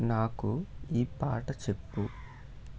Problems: background sounds at intervals